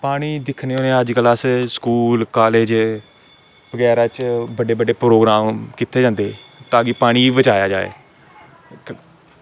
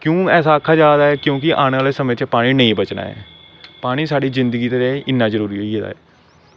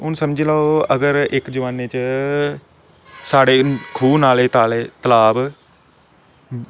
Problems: constant background noise